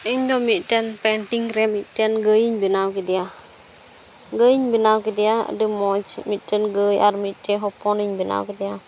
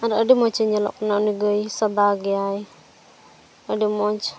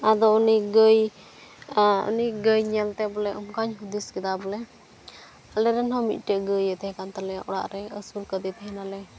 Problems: background sounds at intervals